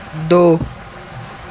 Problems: constant background noise